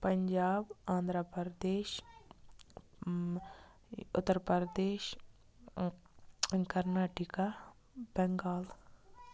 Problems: constant background noise